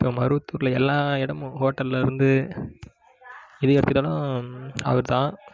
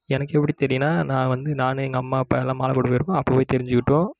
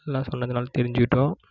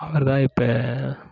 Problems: background conversations at intervals